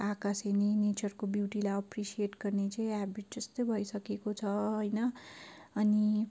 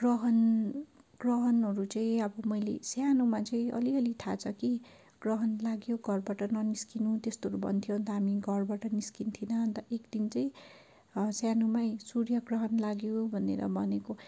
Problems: background sounds at intervals